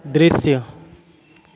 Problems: none marked